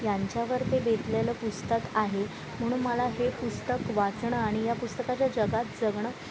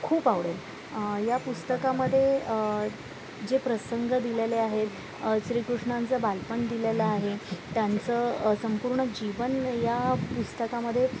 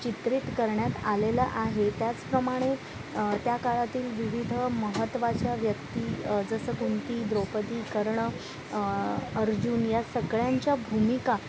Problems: constant background noise, background conversations at intervals